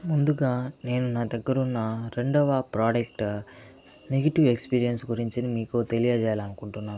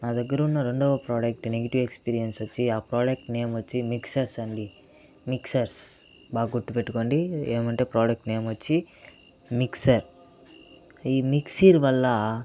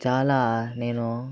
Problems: background conversations at intervals